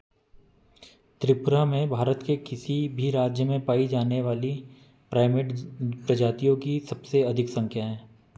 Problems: constant background noise